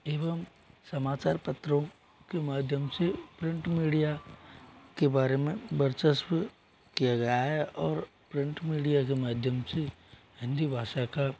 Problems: background sounds at intervals